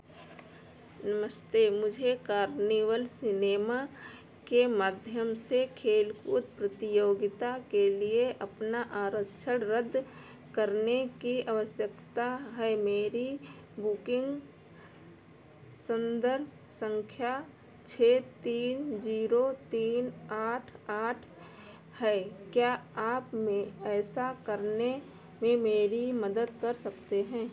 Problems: none marked